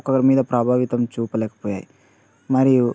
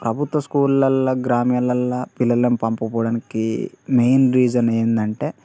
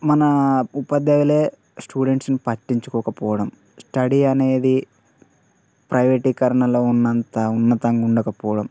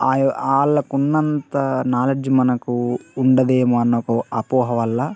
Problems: background conversations at intervals